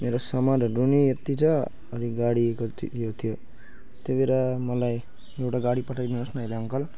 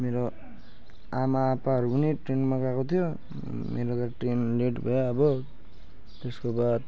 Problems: none marked